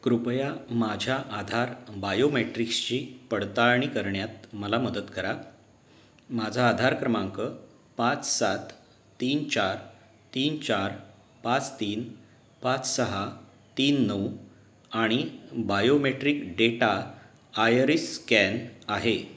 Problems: background sounds at intervals